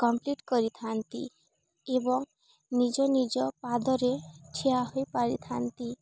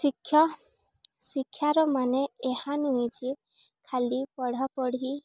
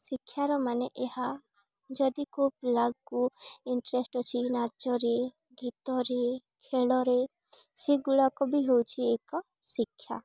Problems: none marked